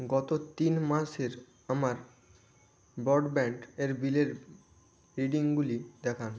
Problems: constant background noise